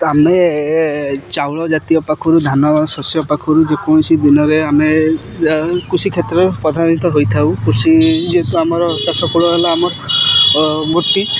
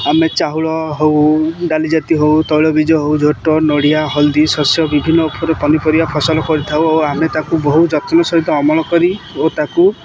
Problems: constant background noise